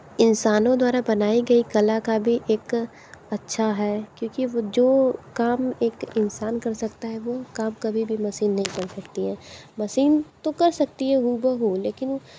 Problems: constant background noise